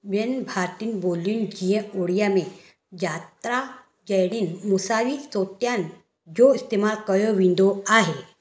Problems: echo